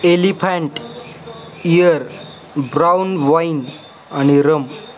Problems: constant background noise, continuous background conversations